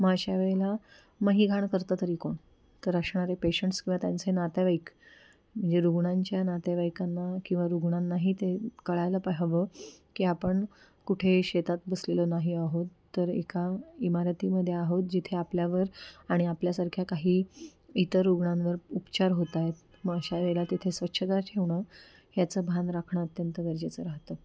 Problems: background sounds at intervals